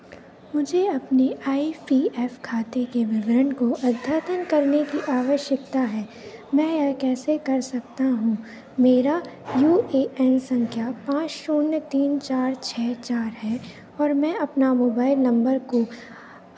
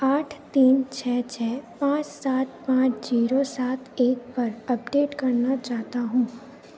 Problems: none marked